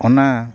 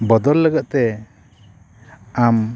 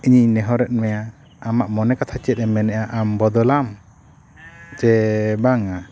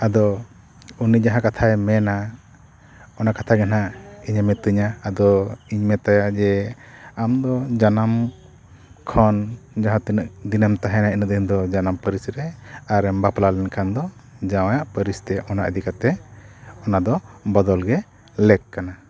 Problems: none marked